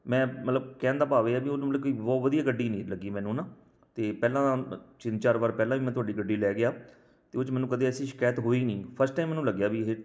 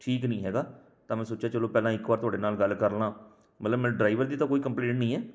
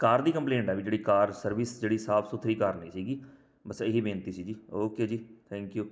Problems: none marked